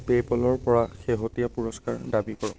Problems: background sounds at intervals